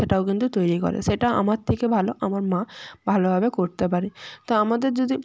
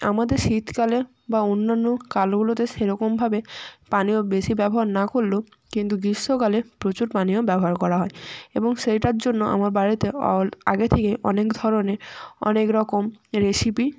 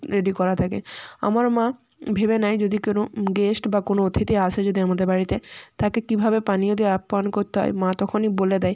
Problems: background sounds at intervals